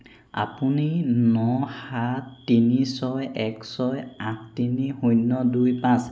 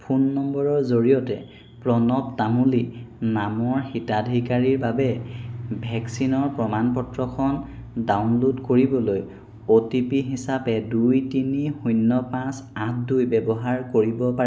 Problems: none marked